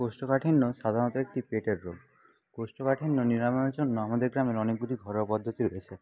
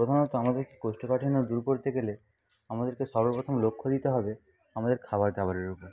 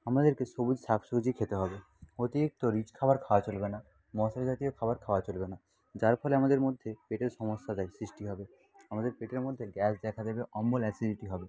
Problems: background sounds at intervals, low volume